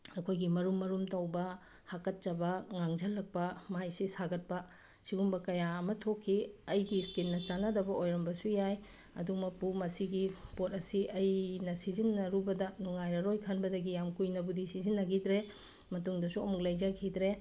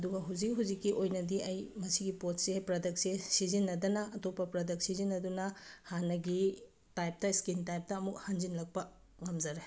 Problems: none marked